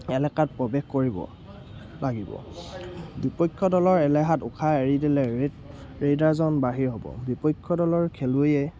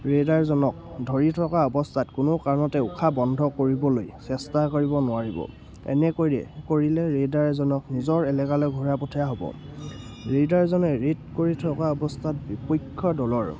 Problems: constant background noise